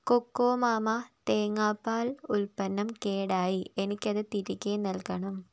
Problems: low volume